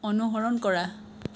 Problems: constant background noise